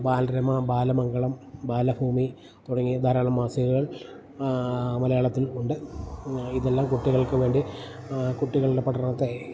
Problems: none marked